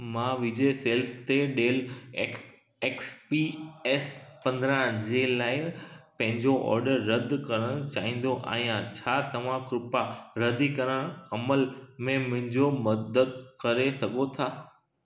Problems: background sounds at intervals, echo